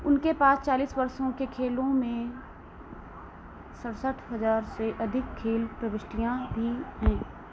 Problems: constant background noise